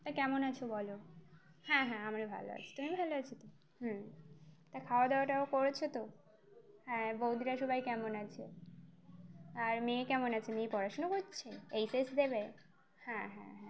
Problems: constant background noise